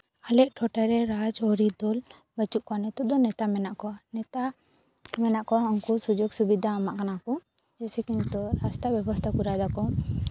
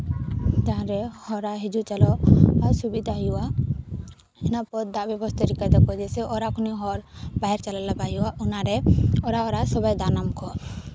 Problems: none marked